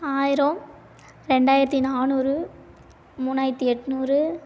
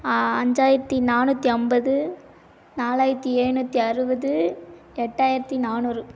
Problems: none marked